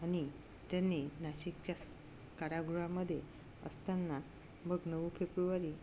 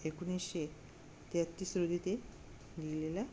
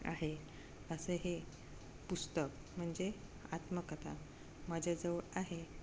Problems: none marked